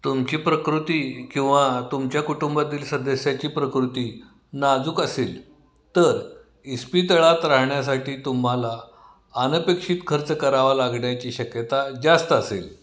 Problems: none marked